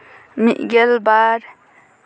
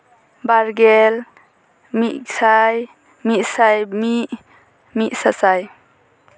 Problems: none marked